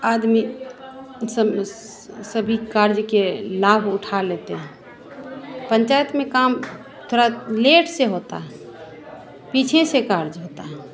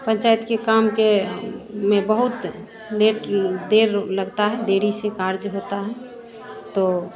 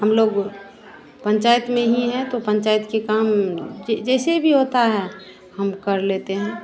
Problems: constant background noise